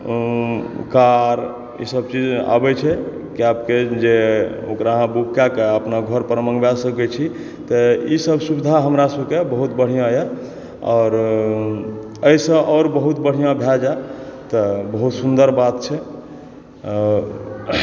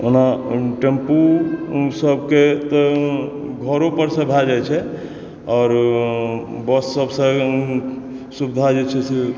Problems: background sounds at intervals, background conversations at intervals